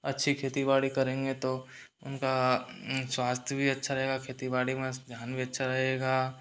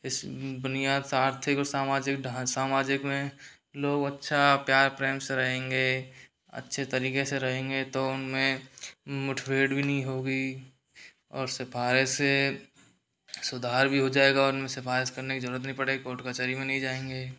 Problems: background sounds at intervals